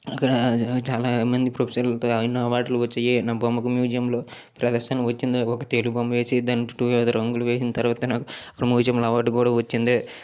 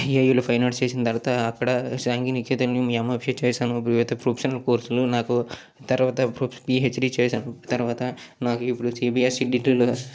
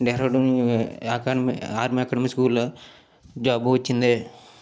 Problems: none marked